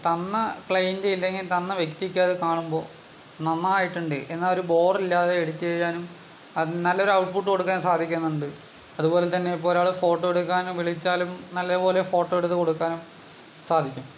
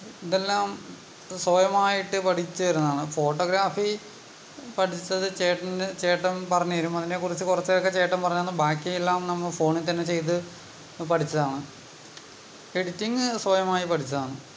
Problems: background sounds at intervals